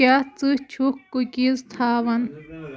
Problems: background conversations at intervals